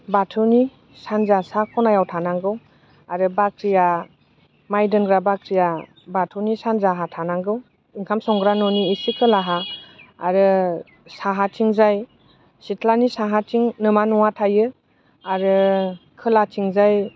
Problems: constant background noise